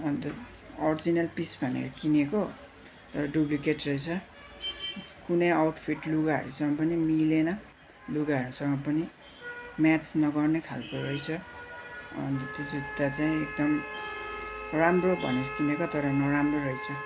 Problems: constant background noise